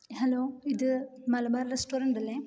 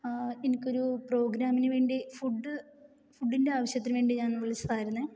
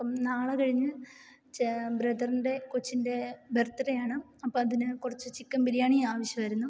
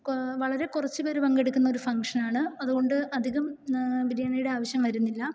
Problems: none marked